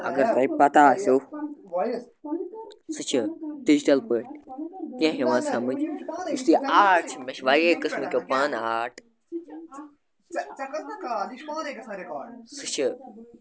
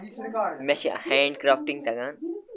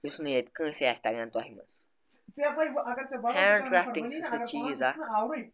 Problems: constant background noise